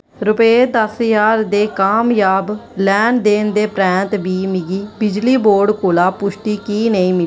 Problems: constant background noise, background conversations at intervals